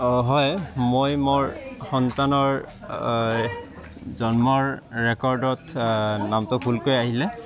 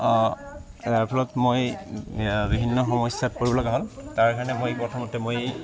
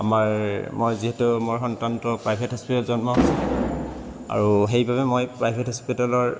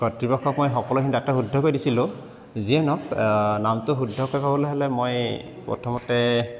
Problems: constant background noise, continuous background conversations